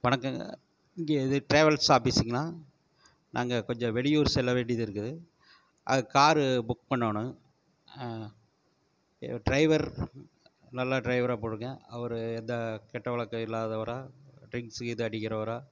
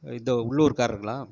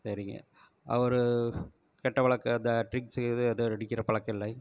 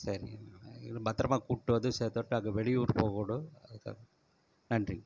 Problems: none marked